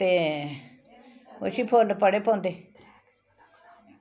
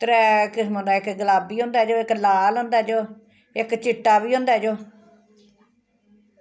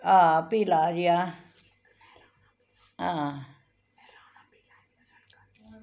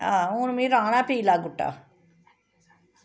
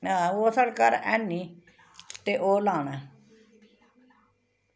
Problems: constant background noise, background conversations at intervals